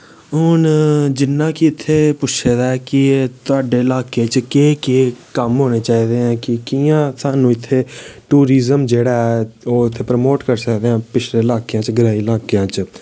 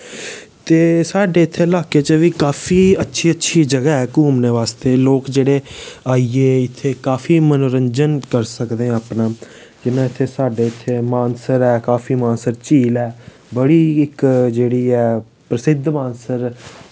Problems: background sounds at intervals